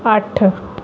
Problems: background sounds at intervals